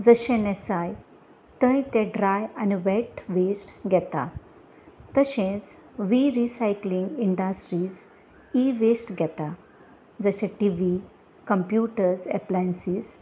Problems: none marked